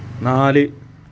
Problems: background sounds at intervals